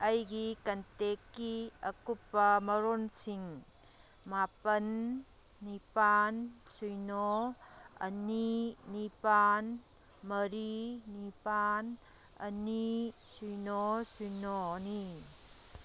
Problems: background sounds at intervals